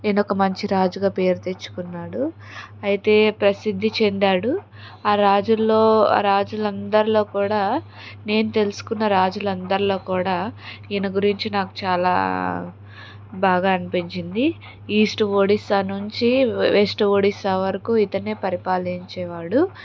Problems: constant background noise